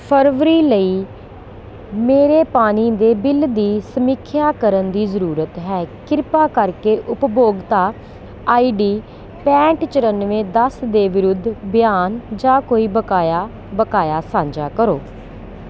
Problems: constant background noise